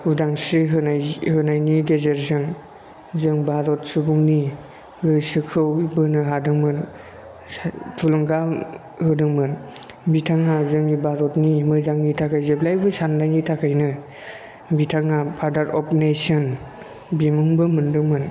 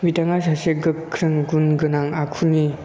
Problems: constant background noise